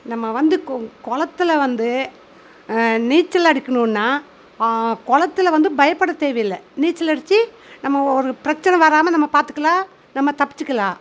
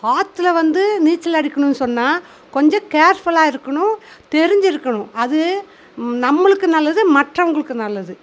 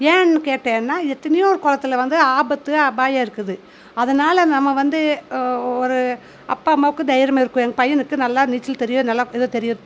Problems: none marked